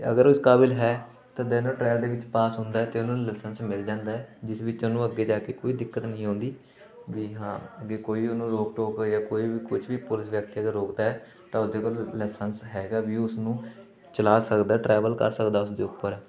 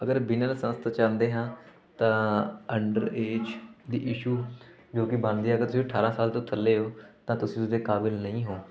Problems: constant background noise, continuous background conversations